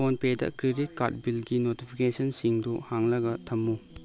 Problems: none marked